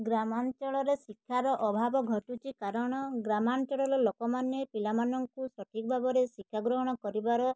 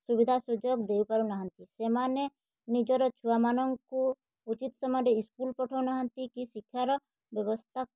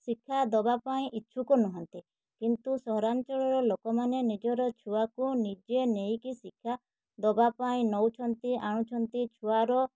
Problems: none marked